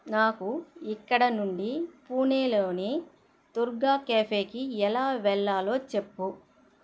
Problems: constant background noise